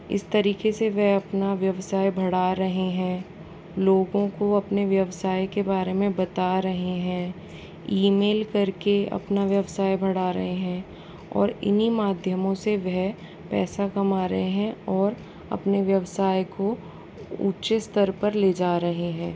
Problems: constant background noise